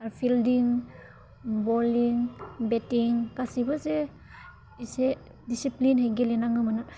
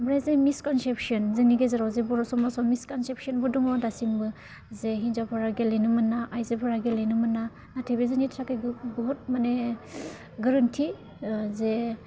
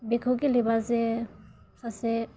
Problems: low volume